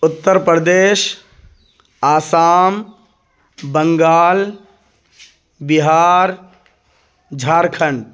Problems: none marked